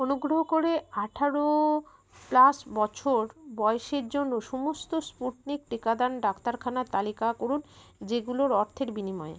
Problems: background sounds at intervals